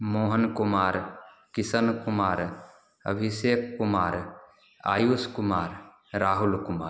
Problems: none marked